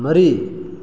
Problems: none marked